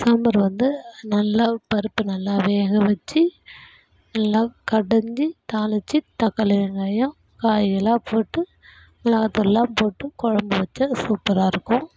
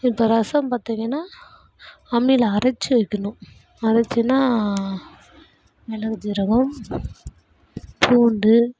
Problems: background sounds at intervals